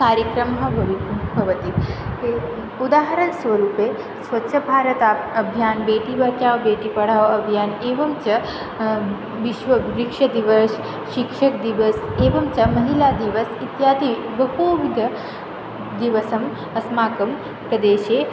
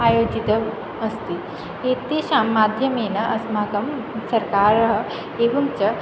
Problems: constant background noise